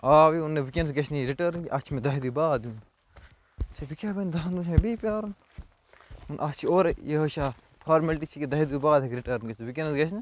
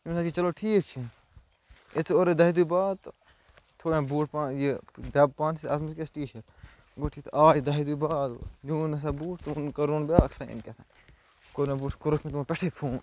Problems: constant background noise